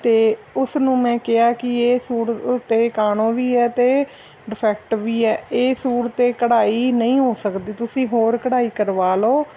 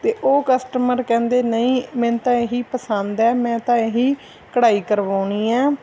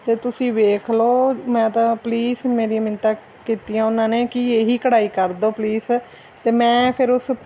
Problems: none marked